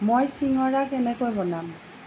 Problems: none marked